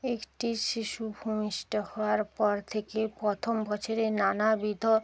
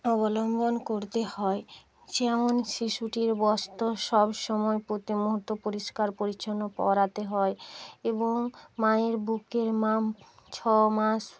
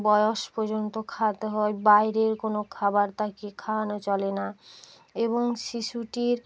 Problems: constant background noise